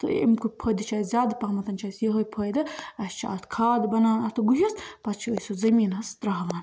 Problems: constant background noise